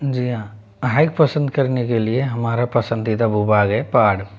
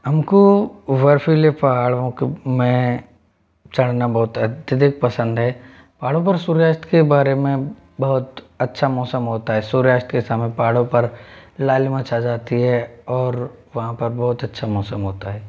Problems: constant background noise